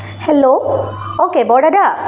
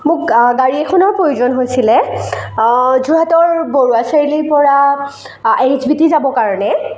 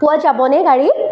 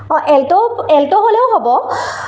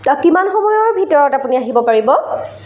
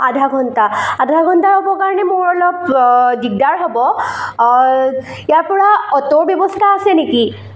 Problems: echo